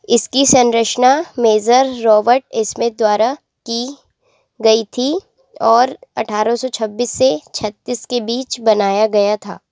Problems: none marked